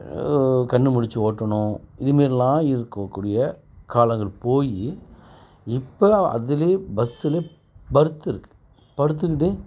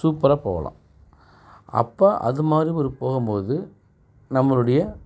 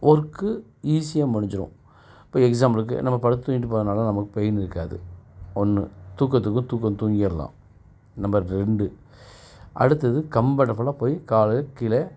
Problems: background sounds at intervals